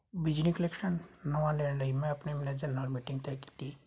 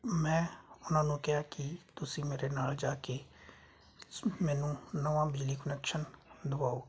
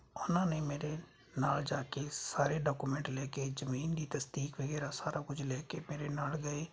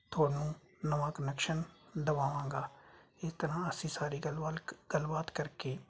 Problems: constant background noise